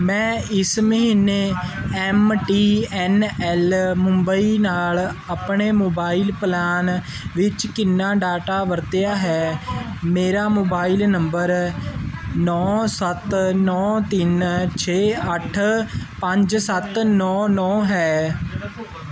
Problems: continuous background conversations